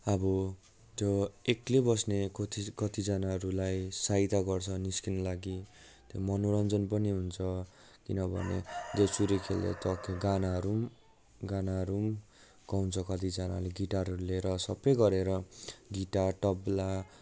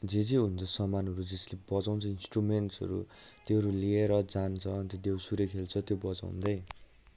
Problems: background sounds at intervals